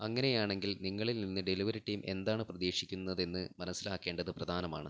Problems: low volume